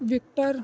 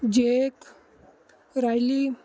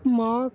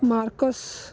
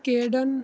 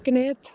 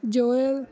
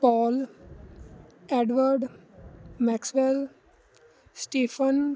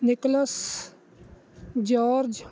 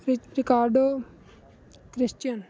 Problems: constant background noise